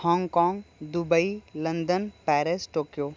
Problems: constant background noise